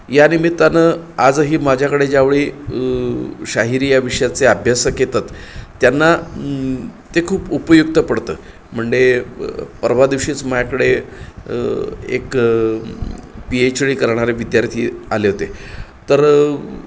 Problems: none marked